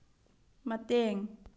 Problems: low volume